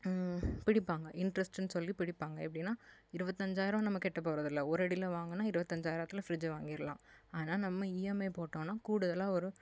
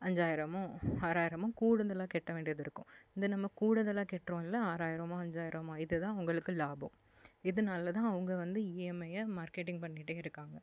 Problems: background sounds at intervals